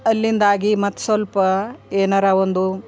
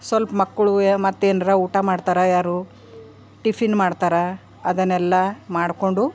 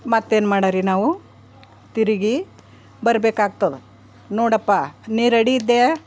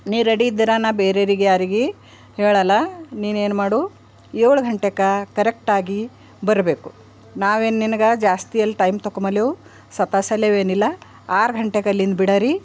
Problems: background sounds at intervals